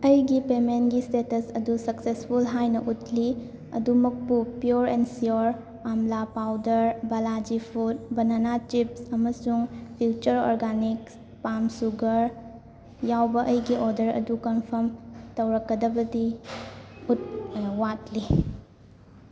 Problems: constant background noise, continuous background conversations